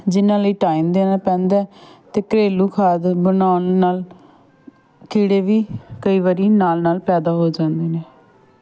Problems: background sounds at intervals, continuous background conversations